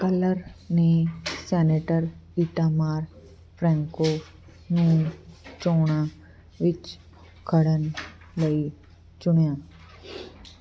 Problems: constant background noise